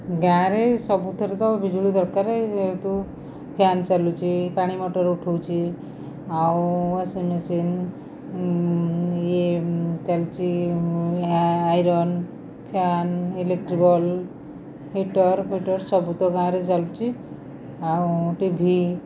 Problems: constant background noise